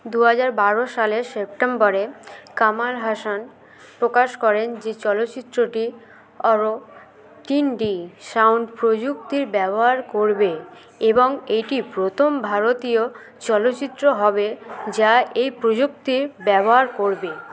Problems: continuous background conversations